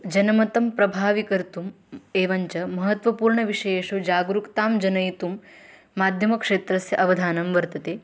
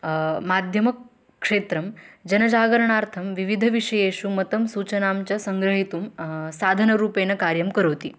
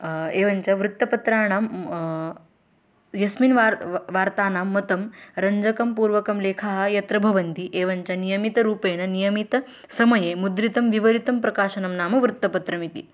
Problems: none marked